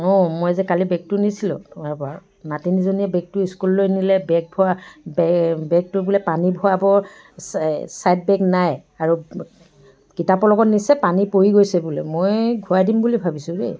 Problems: background sounds at intervals, background conversations at intervals